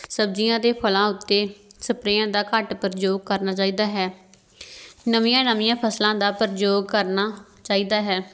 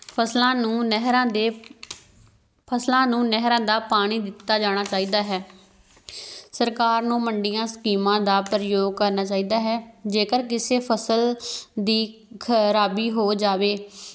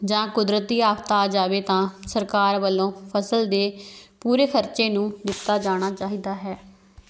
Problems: background sounds at intervals